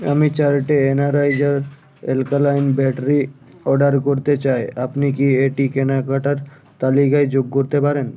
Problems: none marked